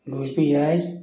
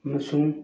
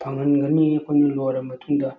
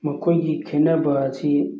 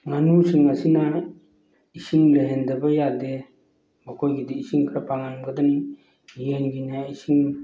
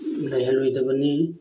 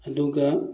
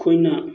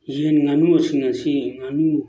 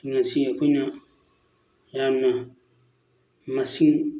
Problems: background sounds at intervals